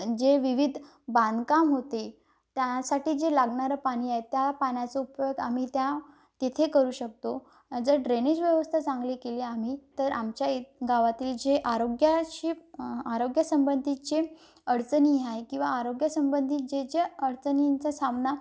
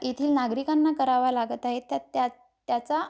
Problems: none marked